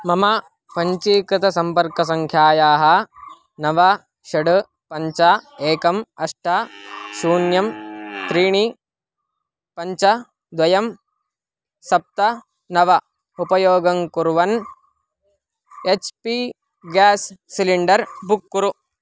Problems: constant background noise